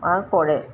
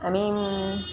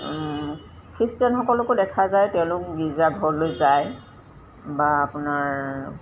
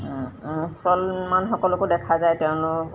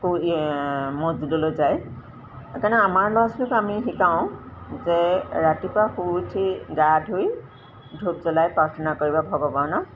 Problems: constant background noise